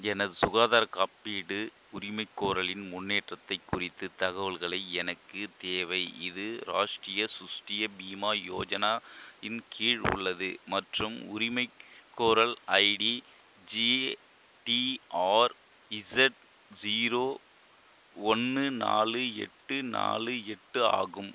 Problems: constant background noise